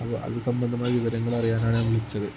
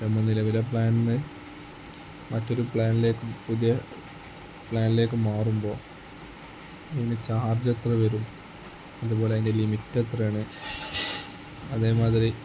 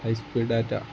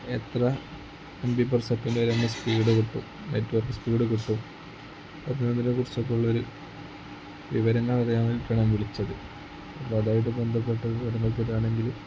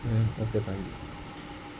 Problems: constant background noise, low volume